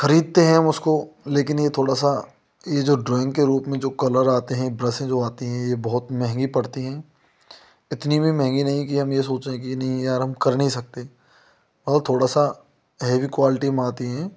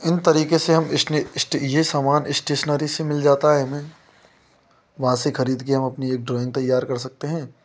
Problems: constant background noise